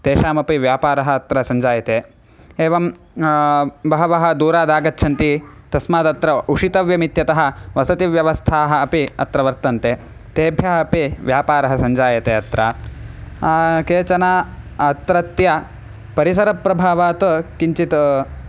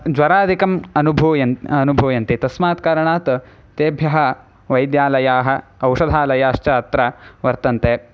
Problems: none marked